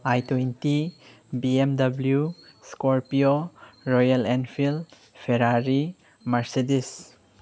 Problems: none marked